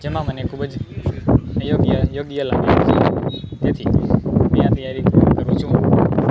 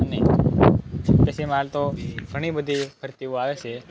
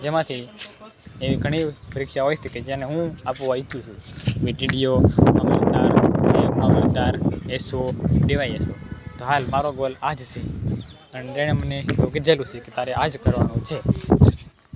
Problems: constant background noise